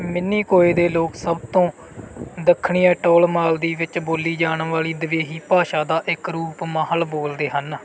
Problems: background conversations at intervals